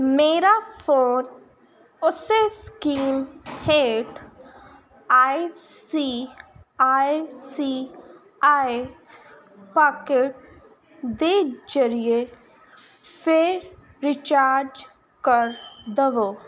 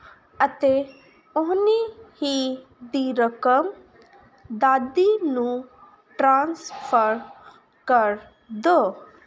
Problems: constant background noise